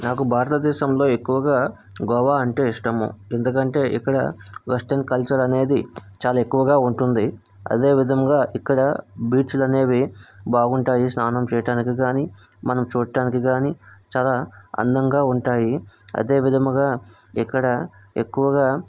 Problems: background sounds at intervals